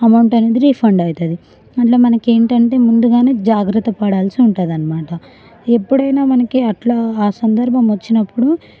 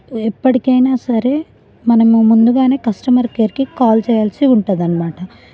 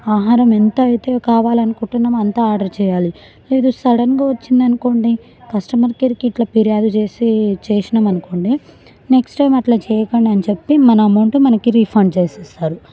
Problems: continuous background conversations